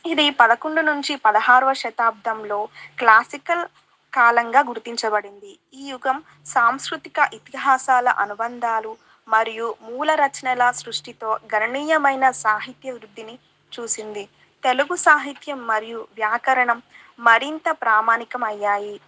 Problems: background conversations at intervals